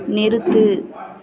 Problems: continuous background conversations